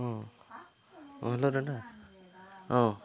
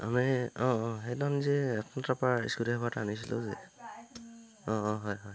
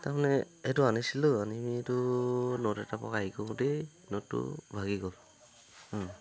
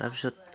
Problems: constant background noise